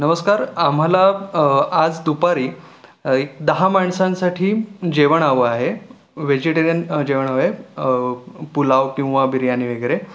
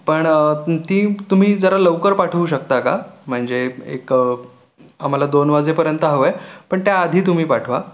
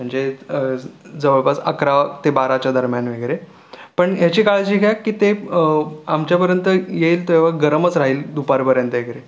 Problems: none marked